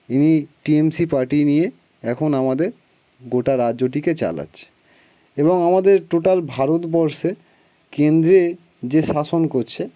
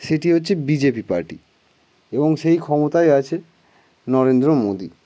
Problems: background sounds at intervals, background conversations at intervals